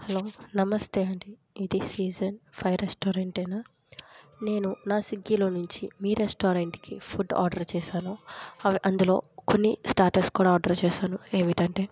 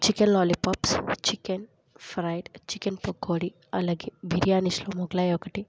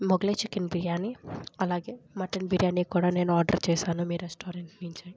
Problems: low volume